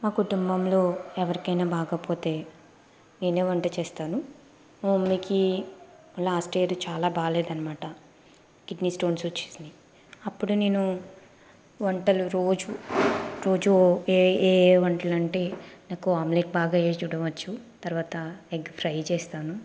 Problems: constant background noise